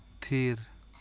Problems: constant background noise